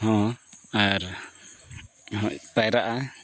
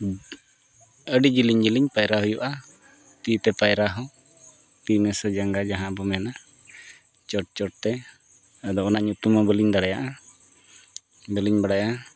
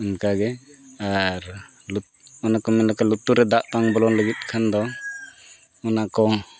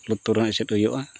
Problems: background sounds at intervals